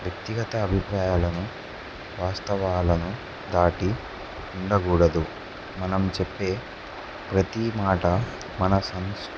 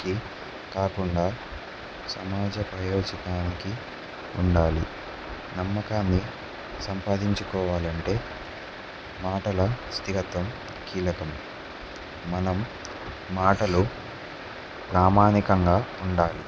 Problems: none marked